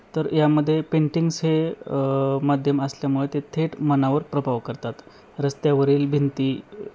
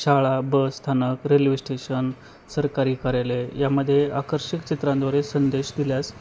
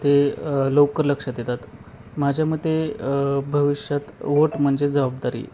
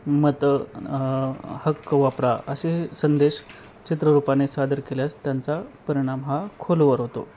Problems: constant background noise